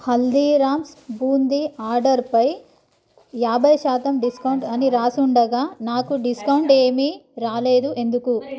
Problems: none marked